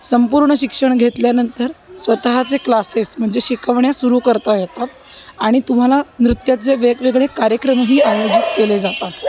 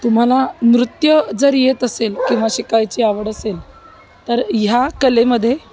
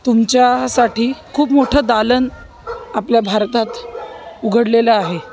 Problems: constant background noise, background conversations at intervals